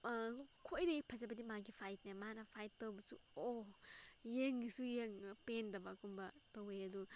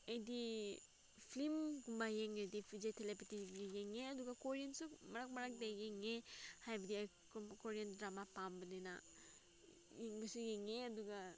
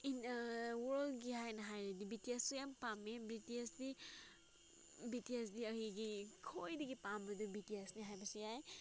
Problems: background sounds at intervals